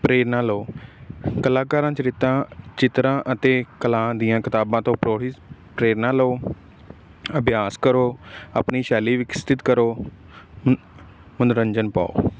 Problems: none marked